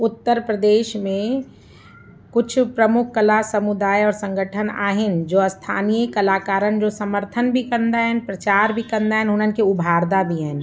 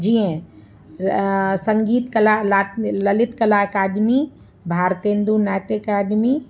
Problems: constant background noise